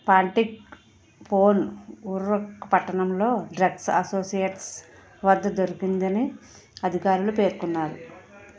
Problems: background conversations at intervals